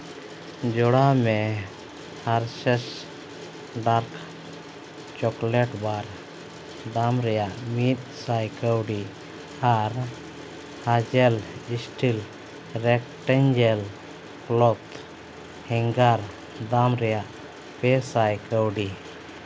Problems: constant background noise